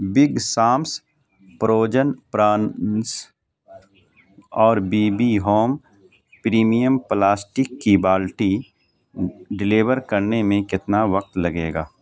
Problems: constant background noise